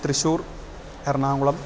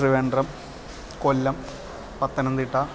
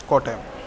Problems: constant background noise